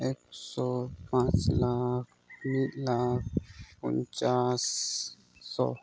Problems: background sounds at intervals, low volume